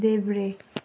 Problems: none marked